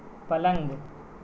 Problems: constant background noise, low volume